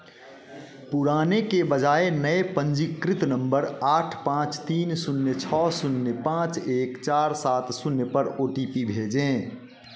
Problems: none marked